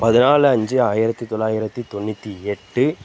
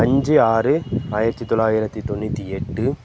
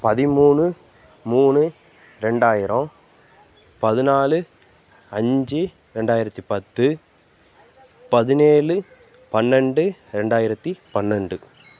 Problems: continuous background conversations